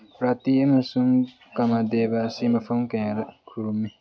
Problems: low volume